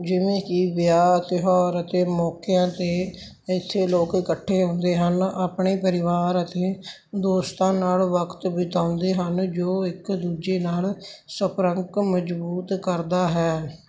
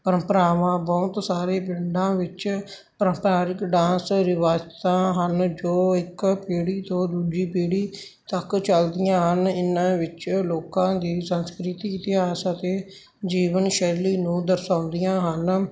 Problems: constant background noise